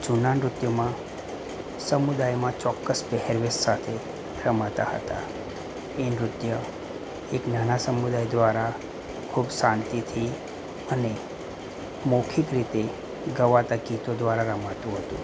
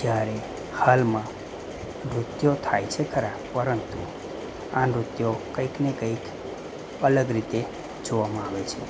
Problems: none marked